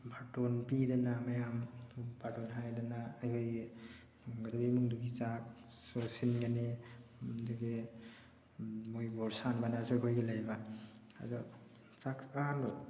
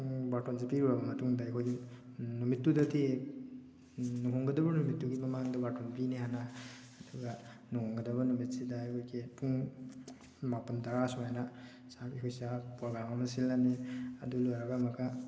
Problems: background sounds at intervals